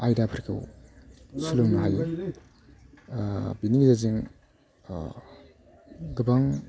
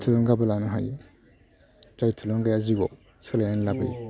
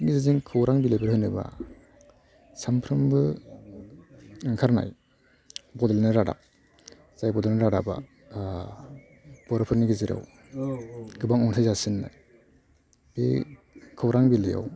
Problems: constant background noise